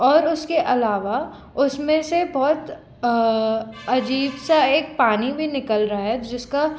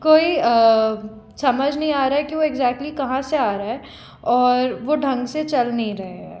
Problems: constant background noise